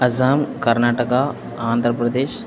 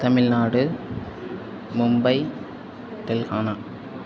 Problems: constant background noise